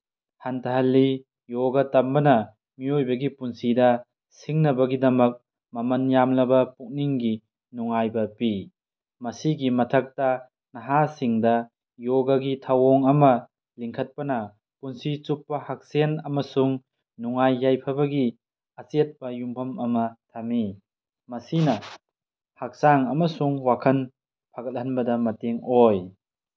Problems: none marked